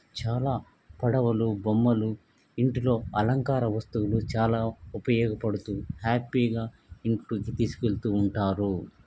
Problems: none marked